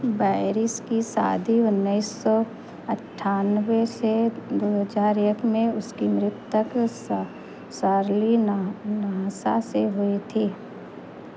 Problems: constant background noise